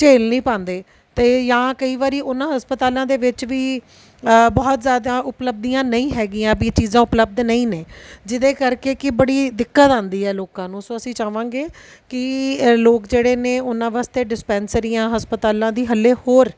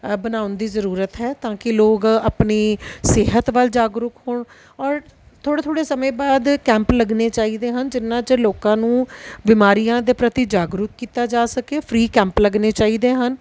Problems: none marked